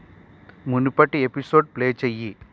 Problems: constant background noise